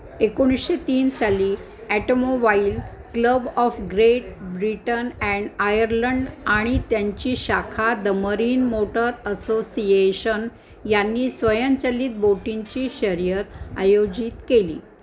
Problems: constant background noise, background conversations at intervals